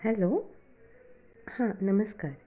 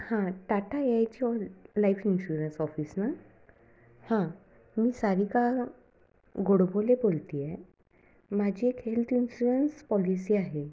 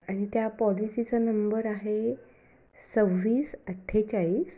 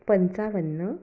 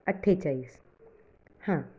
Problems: none marked